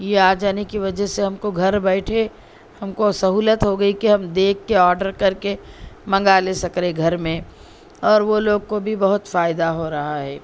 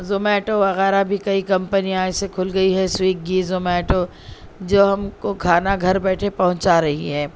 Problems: constant background noise